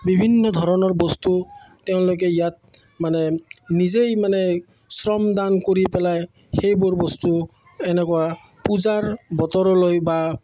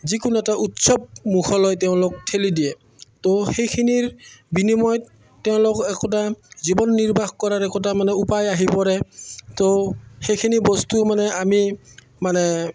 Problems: none marked